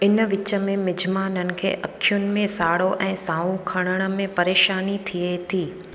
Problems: constant background noise, echo